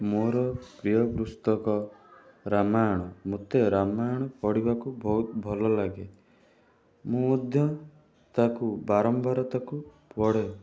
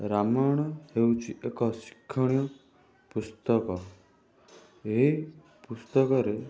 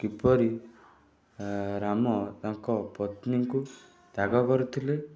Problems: none marked